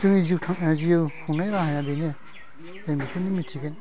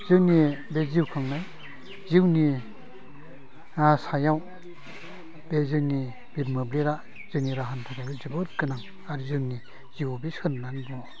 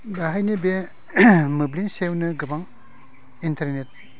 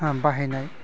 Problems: low volume